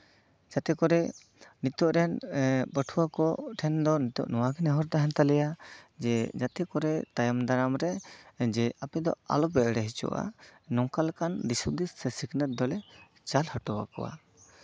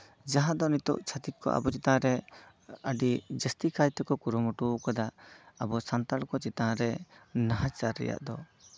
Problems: constant background noise, background conversations at intervals